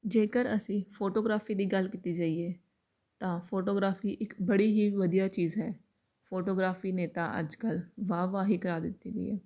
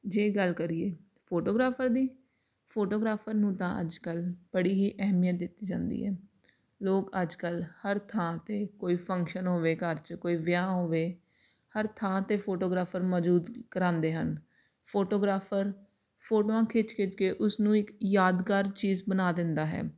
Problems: none marked